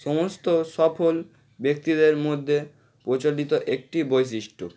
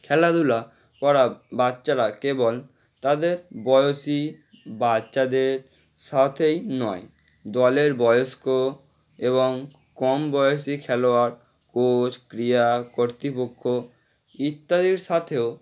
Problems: none marked